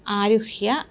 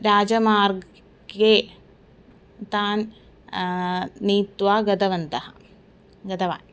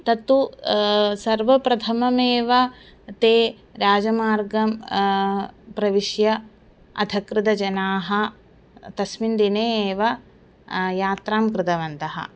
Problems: constant background noise